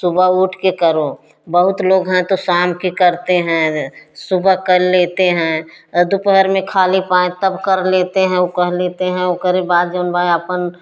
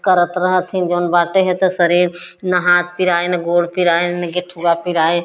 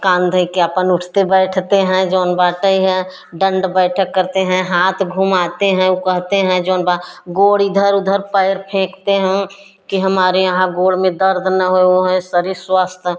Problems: none marked